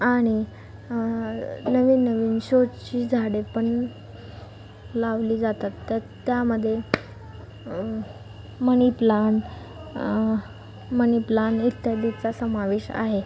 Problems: none marked